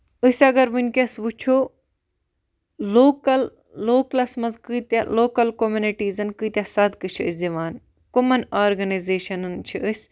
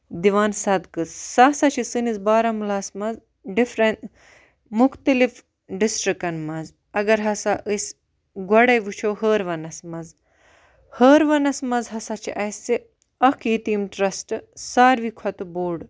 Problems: none marked